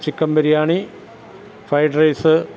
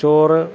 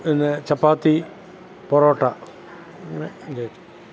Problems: background sounds at intervals, background conversations at intervals